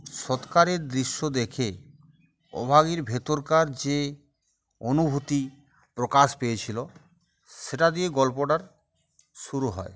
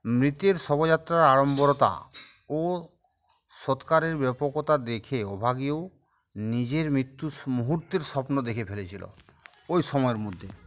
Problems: constant background noise, background conversations at intervals